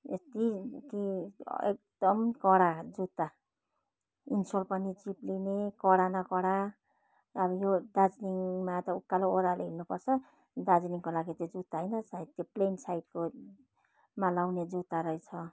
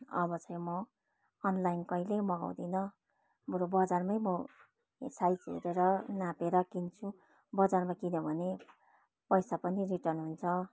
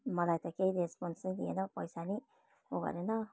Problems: none marked